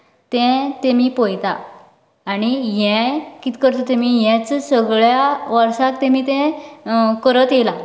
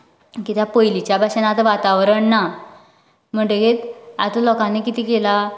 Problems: none marked